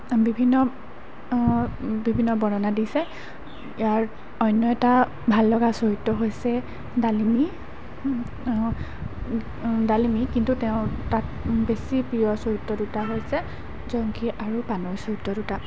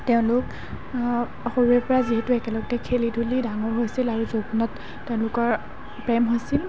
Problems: constant background noise